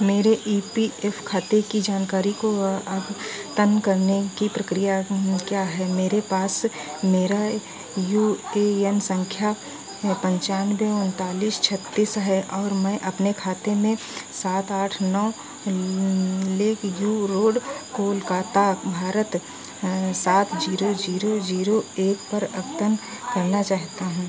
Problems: none marked